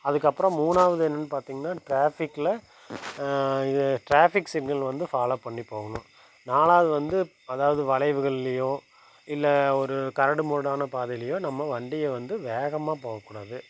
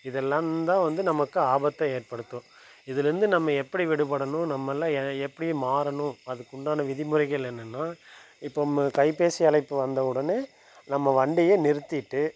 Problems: constant background noise